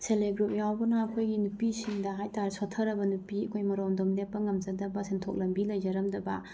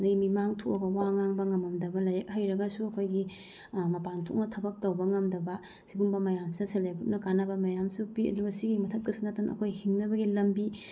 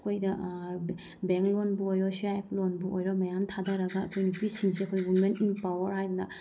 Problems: background sounds at intervals